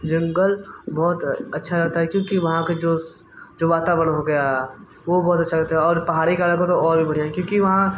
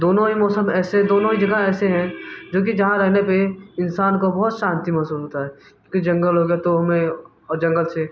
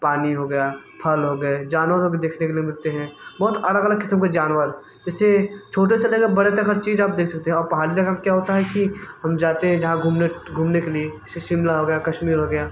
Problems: constant background noise